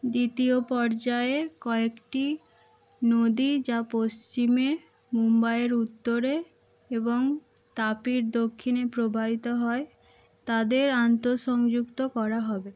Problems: constant background noise